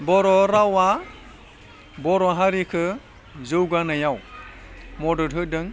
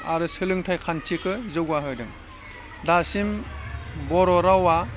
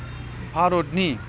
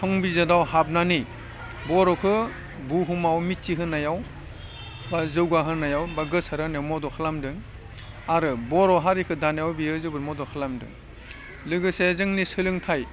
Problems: constant background noise